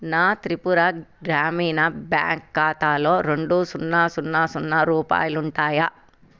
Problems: none marked